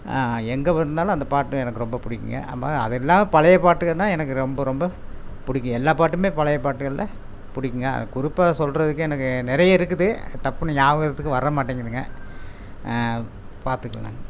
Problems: constant background noise